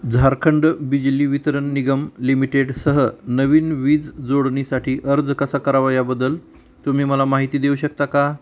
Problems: constant background noise